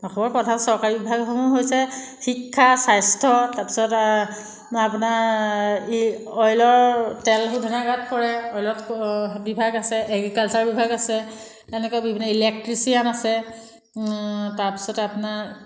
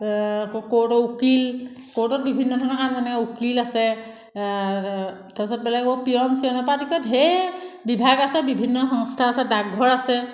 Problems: none marked